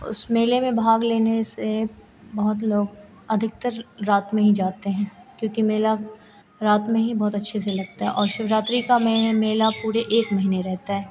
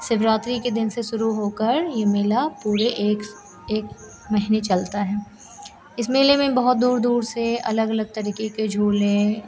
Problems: constant background noise